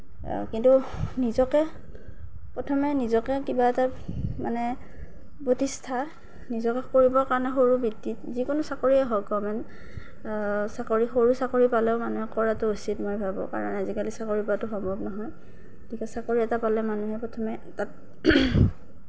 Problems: none marked